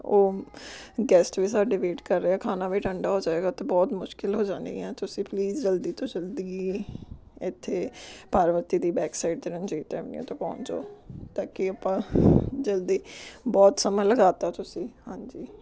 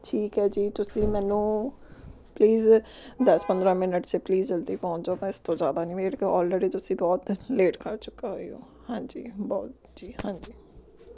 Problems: background conversations at intervals